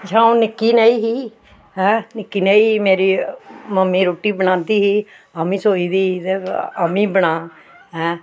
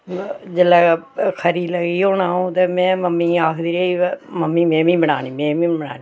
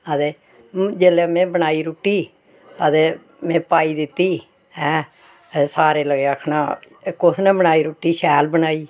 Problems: none marked